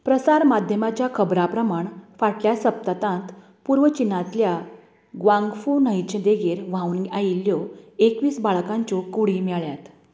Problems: constant background noise